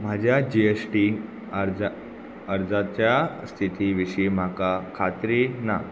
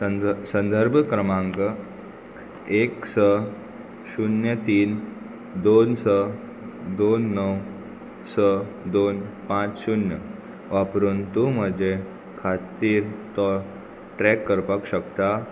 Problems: constant background noise